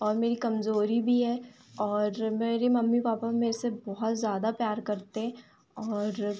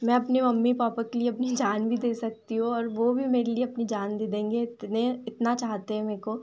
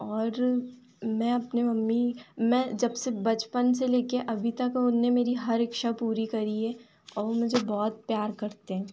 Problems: none marked